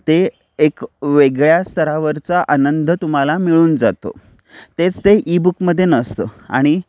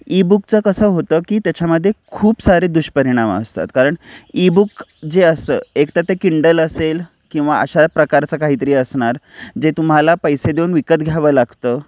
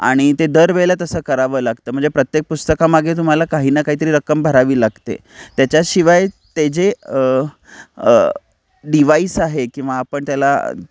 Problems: background sounds at intervals